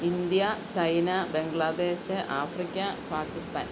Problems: constant background noise